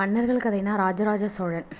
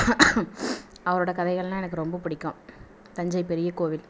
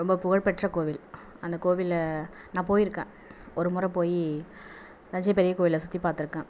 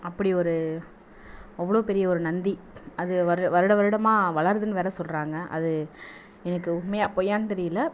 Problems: background sounds at intervals